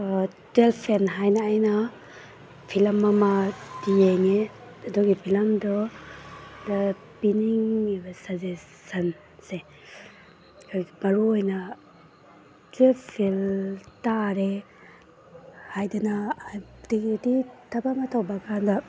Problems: background sounds at intervals